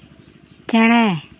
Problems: none marked